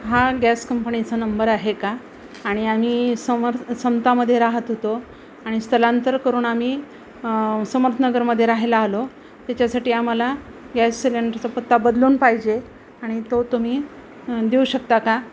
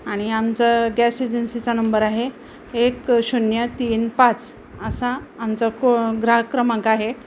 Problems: none marked